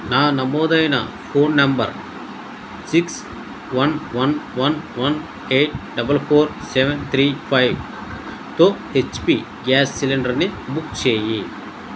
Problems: constant background noise